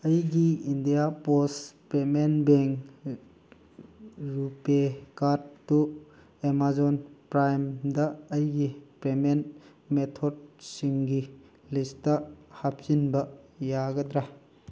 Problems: background sounds at intervals